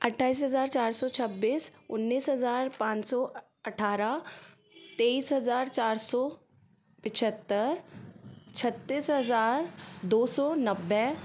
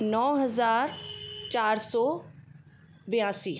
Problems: constant background noise